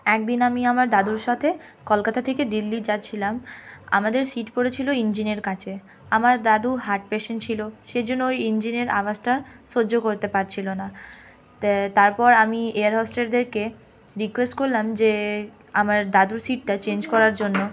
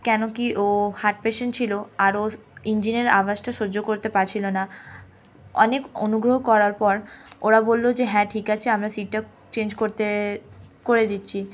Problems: constant background noise, continuous background conversations